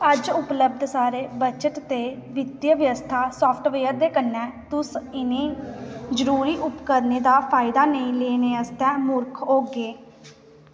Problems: background sounds at intervals, echo